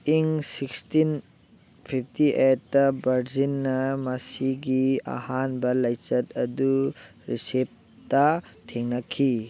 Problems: none marked